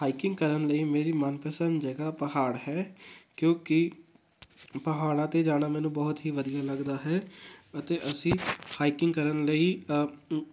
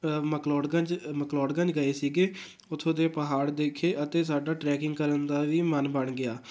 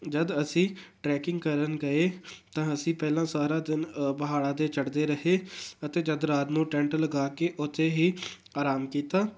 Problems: background sounds at intervals